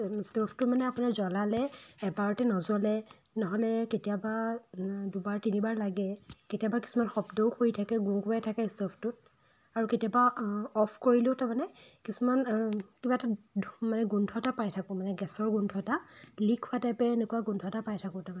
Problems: constant background noise